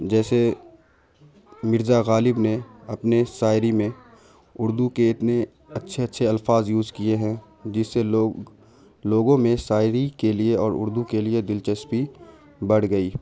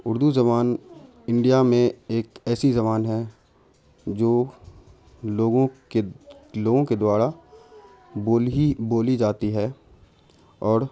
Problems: constant background noise